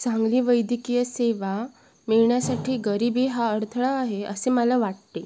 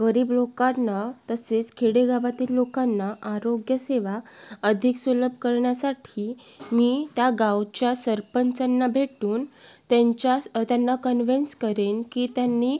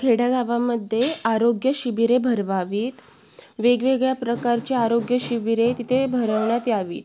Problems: none marked